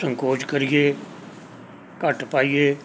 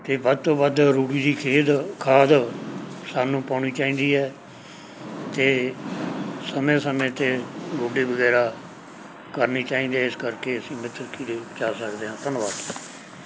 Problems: background sounds at intervals